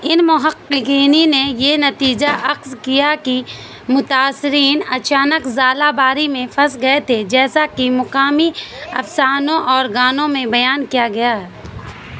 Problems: constant background noise